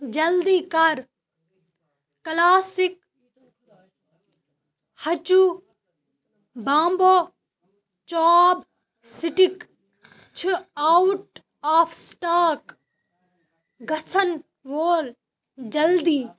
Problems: background sounds at intervals